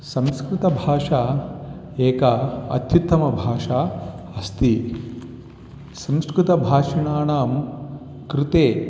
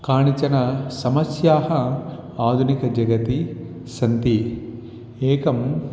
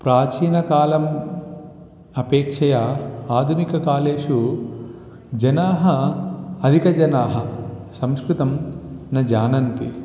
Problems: constant background noise, continuous background conversations